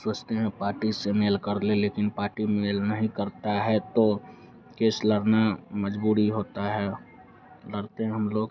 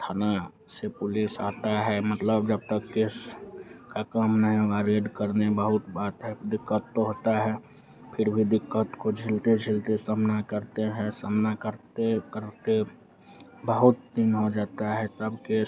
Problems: none marked